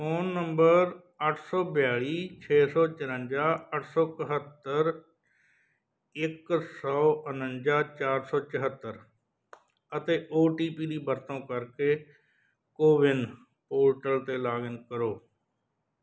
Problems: background sounds at intervals